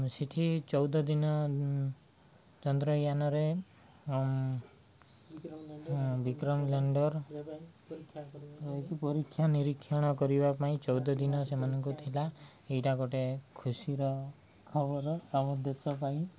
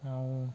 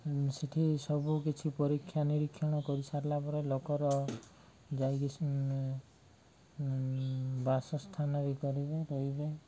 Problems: low volume